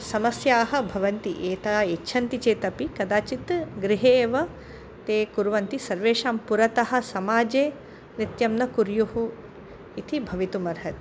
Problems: none marked